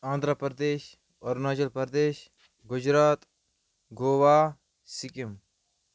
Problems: background sounds at intervals